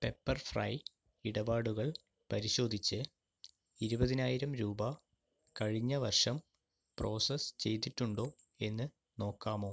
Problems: low volume